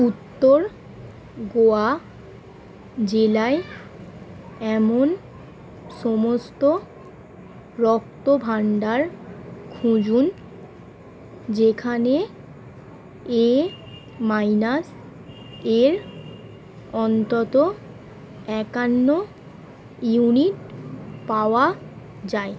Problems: none marked